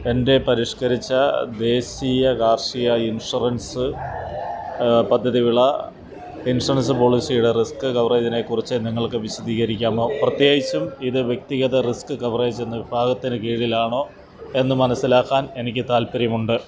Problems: constant background noise